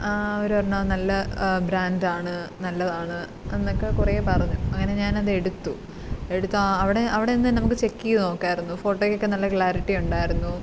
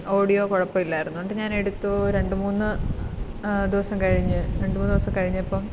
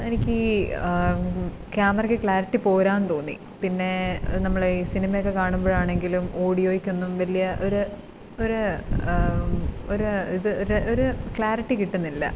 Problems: background sounds at intervals